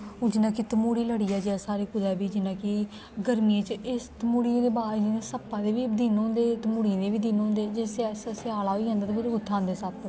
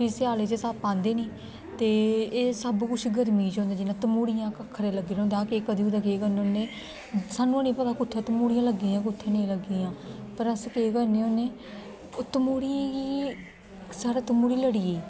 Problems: constant background noise